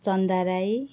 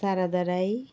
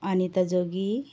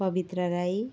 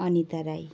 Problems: background sounds at intervals